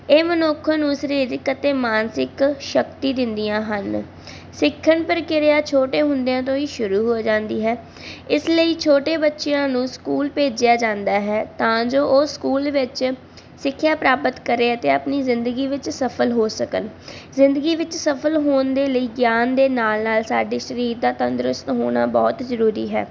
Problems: constant background noise